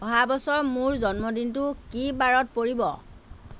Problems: none marked